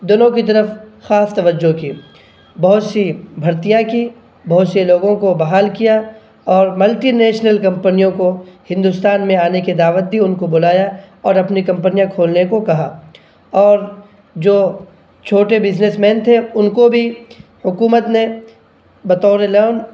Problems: none marked